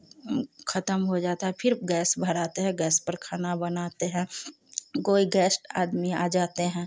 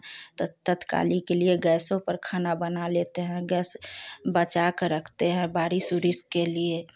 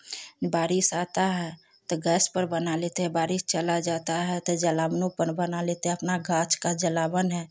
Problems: none marked